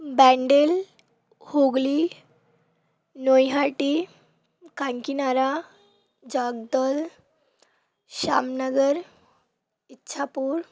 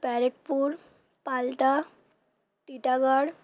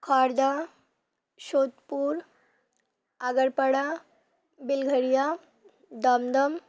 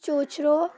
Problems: background sounds at intervals